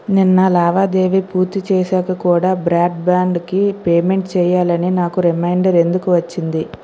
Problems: constant background noise